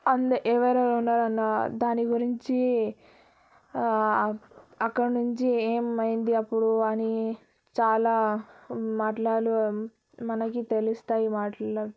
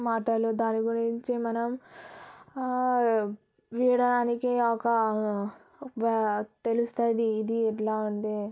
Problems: none marked